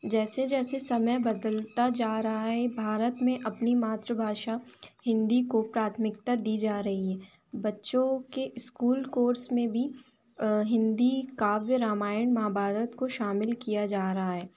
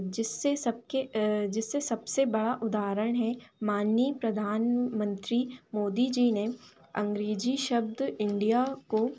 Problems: none marked